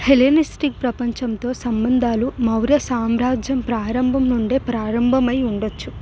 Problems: none marked